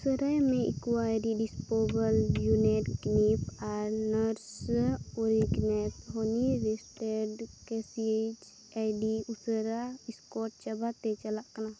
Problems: constant background noise